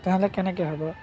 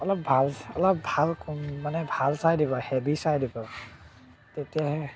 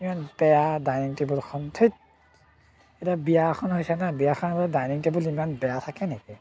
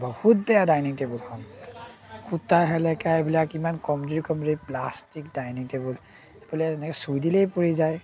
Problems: constant background noise, background conversations at intervals